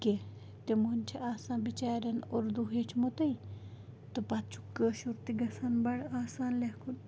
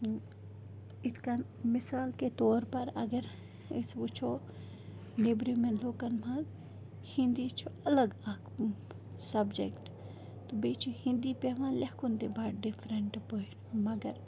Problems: background sounds at intervals, background conversations at intervals, low volume